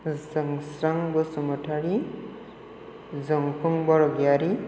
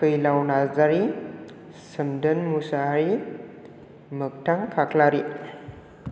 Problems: none marked